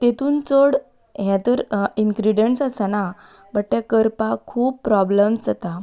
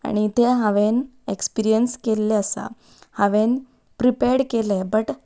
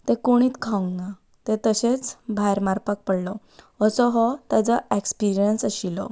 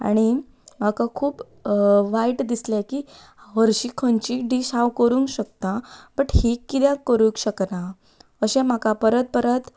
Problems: background sounds at intervals